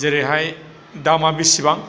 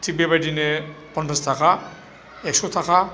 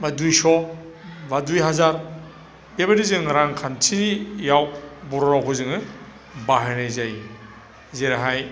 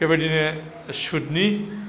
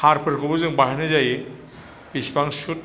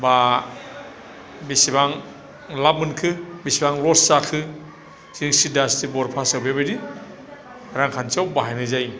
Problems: none marked